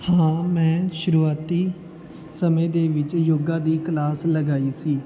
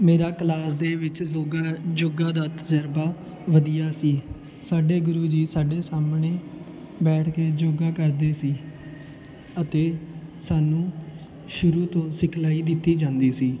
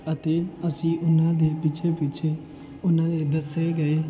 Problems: constant background noise